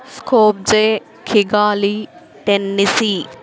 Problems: constant background noise